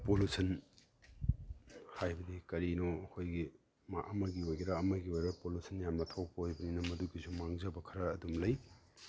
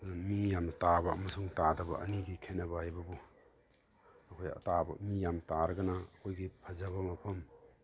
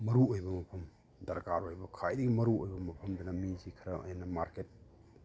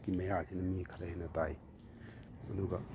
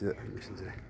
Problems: background sounds at intervals